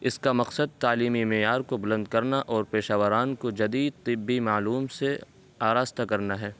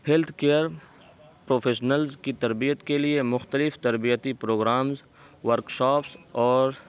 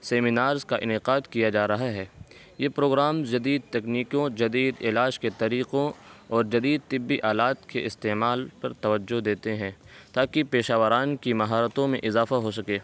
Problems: constant background noise